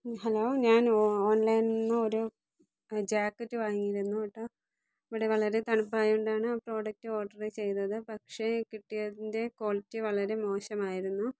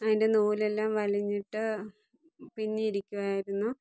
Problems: low volume